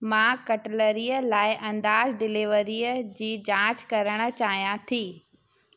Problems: background sounds at intervals, echo